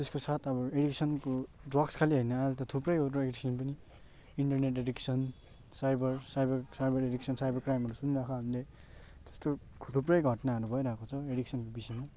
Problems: constant background noise, continuous background conversations